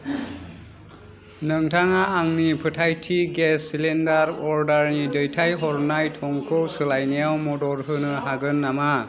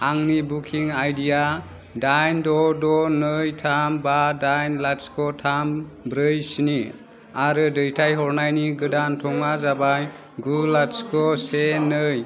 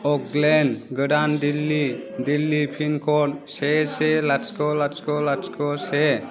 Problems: constant background noise